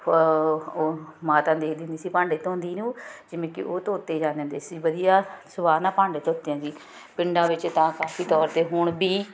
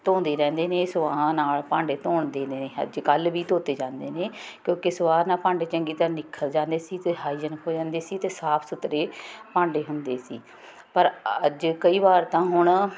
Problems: constant background noise